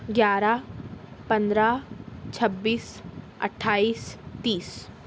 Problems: background sounds at intervals